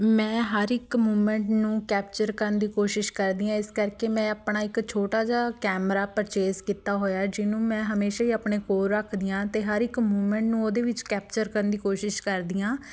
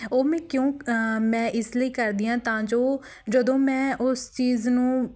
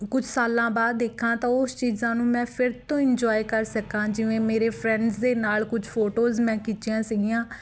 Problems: background conversations at intervals